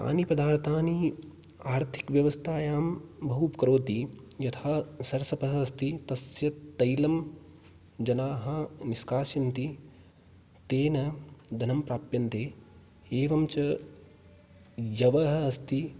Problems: background sounds at intervals